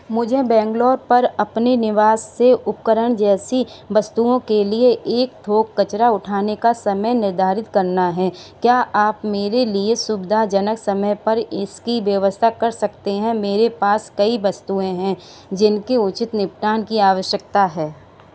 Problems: none marked